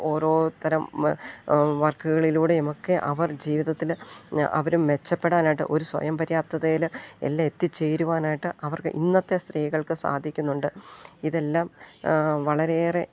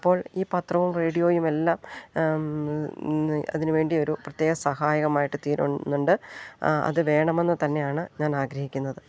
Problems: none marked